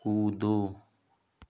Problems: none marked